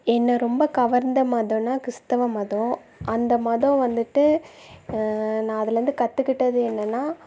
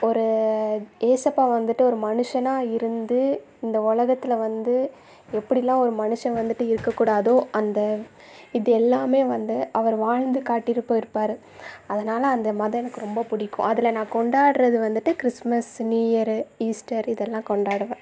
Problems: background sounds at intervals